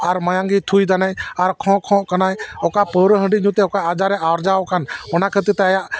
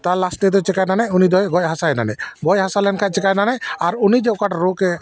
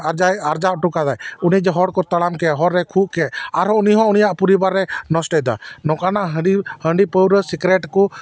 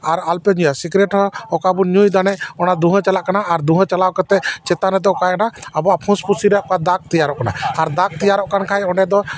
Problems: background sounds at intervals